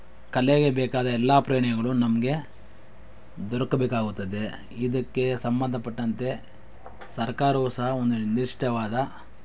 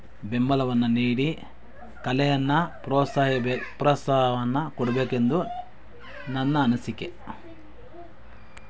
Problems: background sounds at intervals